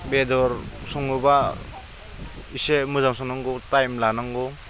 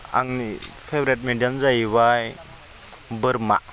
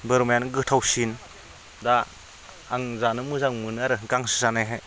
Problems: none marked